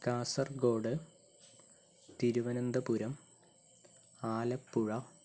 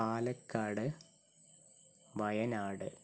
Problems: low volume